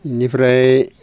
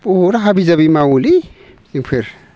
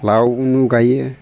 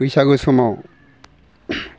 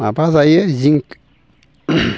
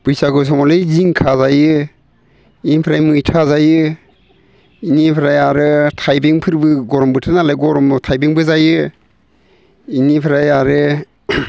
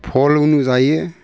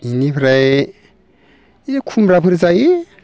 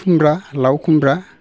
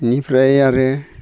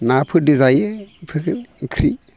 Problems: constant background noise